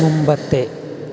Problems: constant background noise, low volume